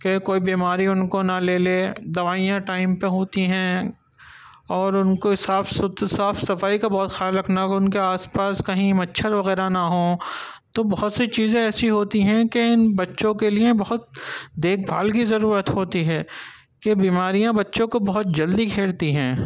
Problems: none marked